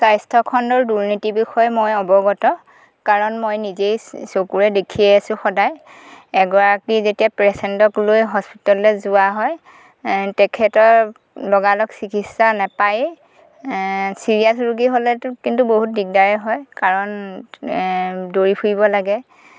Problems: constant background noise